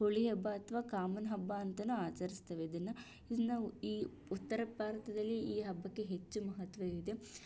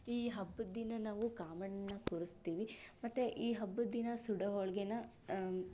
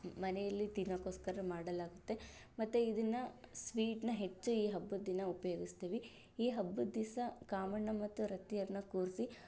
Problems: none marked